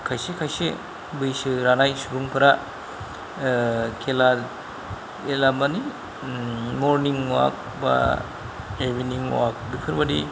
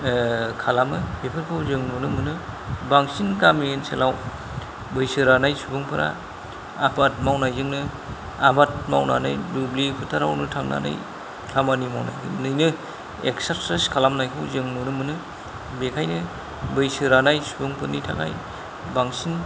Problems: none marked